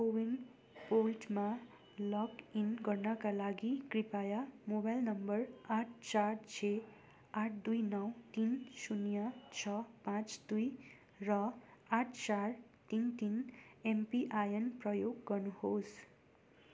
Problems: none marked